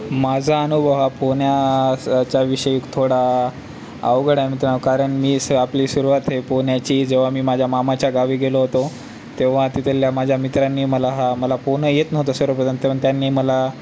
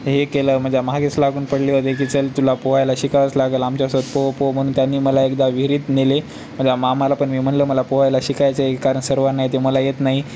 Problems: none marked